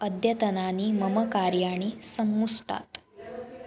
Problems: background conversations at intervals